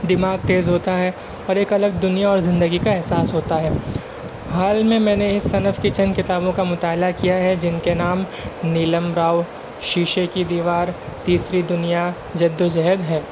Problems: constant background noise